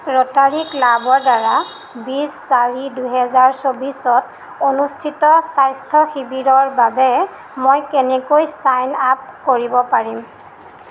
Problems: constant background noise